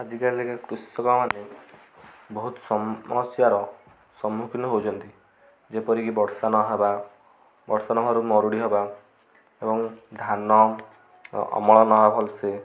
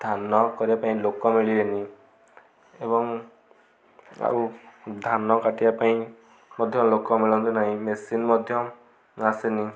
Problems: constant background noise, continuous background conversations